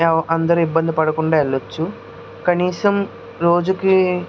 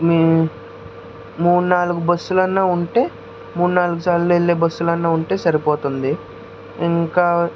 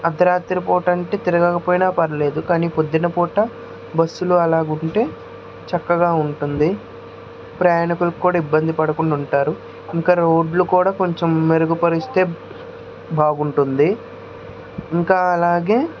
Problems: constant background noise